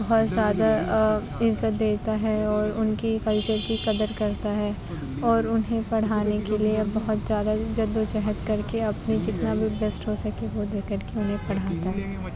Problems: constant background noise, background conversations at intervals, low volume